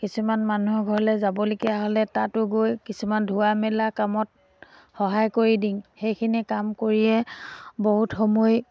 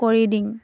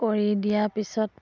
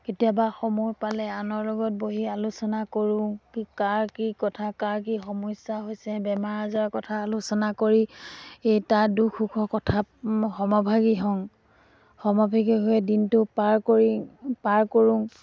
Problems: background sounds at intervals